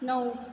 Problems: background sounds at intervals